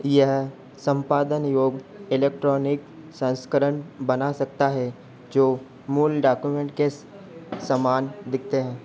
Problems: constant background noise